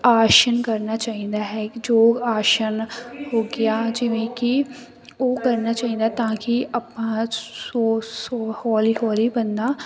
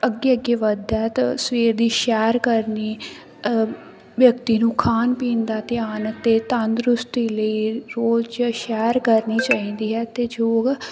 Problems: none marked